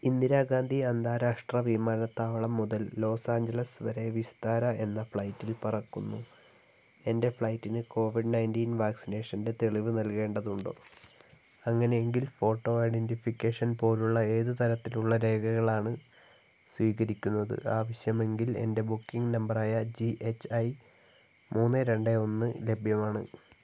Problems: low volume